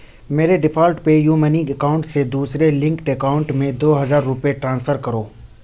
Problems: none marked